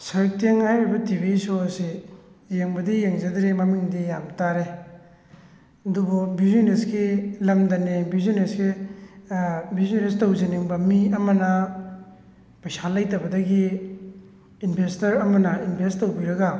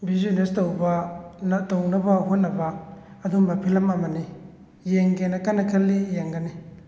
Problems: none marked